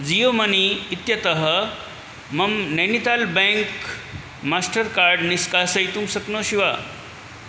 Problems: none marked